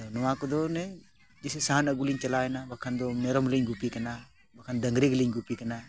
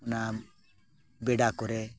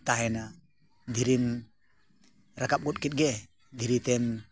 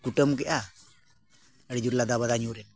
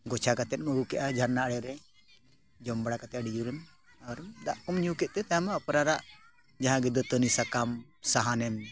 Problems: continuous background conversations